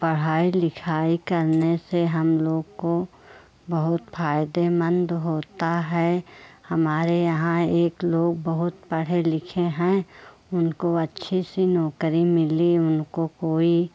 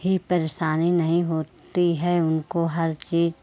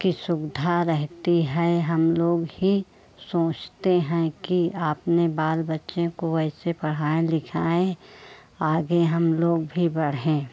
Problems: none marked